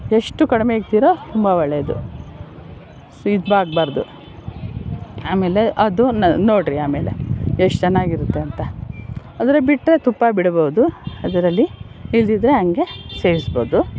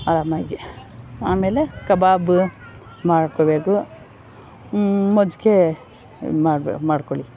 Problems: background sounds at intervals